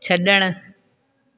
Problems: echo